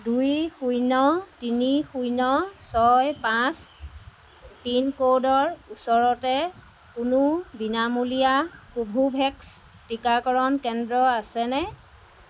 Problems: none marked